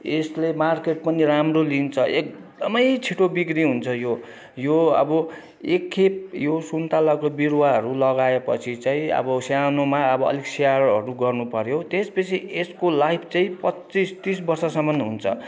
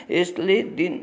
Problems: none marked